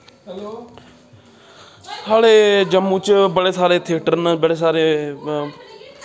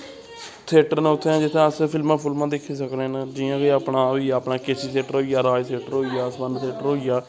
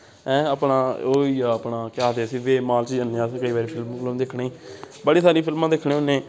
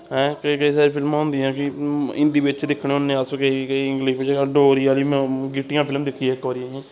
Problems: constant background noise